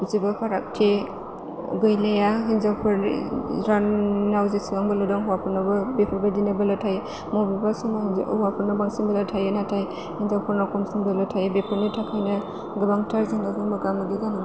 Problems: constant background noise